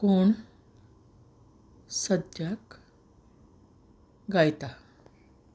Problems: none marked